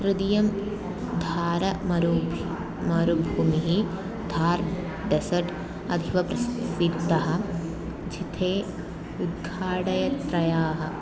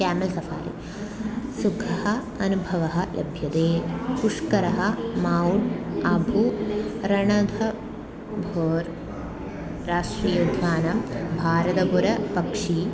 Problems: constant background noise, continuous background conversations